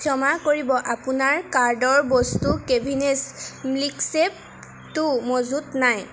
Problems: none marked